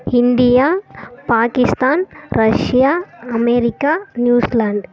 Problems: background conversations at intervals